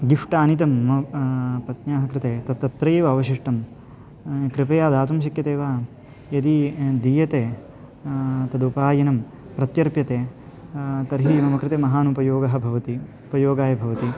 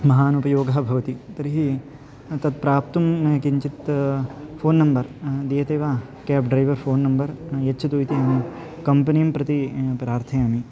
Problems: none marked